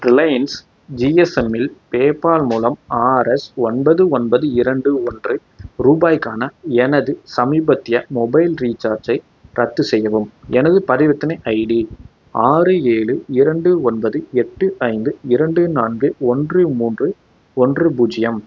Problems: background sounds at intervals